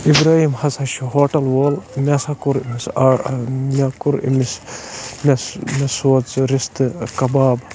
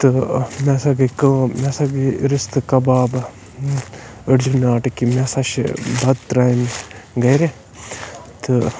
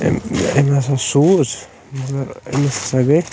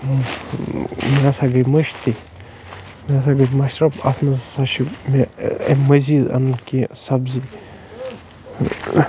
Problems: constant background noise